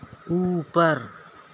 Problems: constant background noise